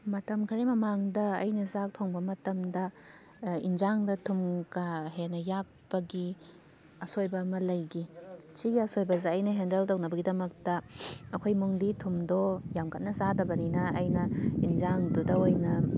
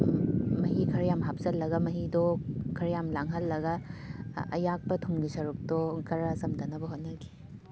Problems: constant background noise